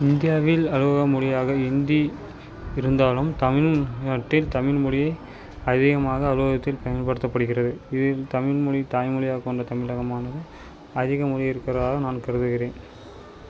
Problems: none marked